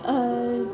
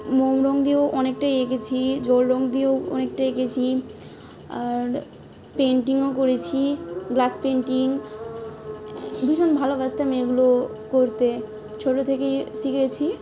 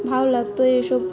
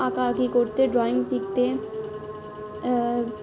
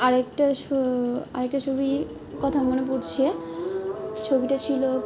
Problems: constant background noise, background conversations at intervals